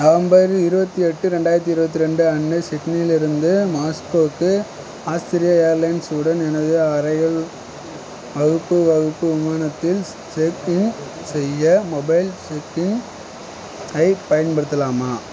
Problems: constant background noise